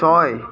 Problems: continuous background conversations